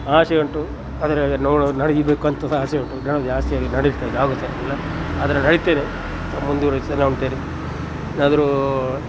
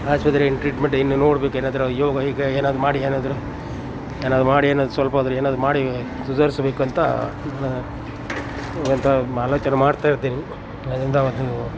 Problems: none marked